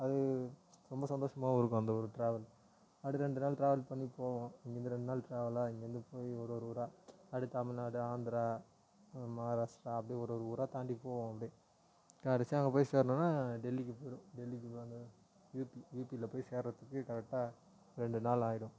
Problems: low volume